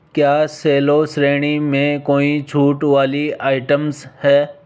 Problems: constant background noise